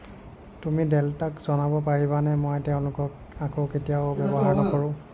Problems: background sounds at intervals